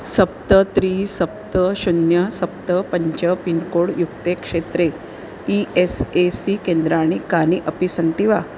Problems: constant background noise